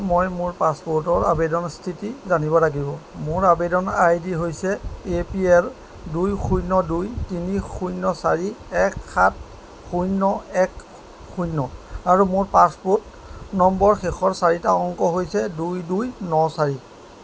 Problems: background sounds at intervals